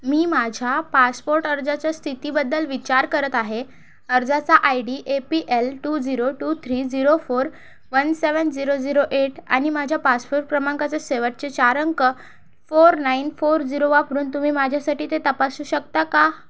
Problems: background sounds at intervals